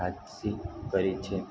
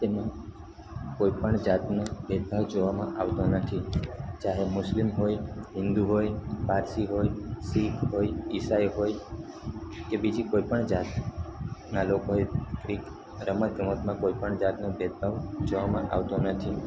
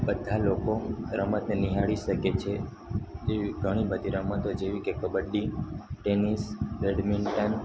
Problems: constant background noise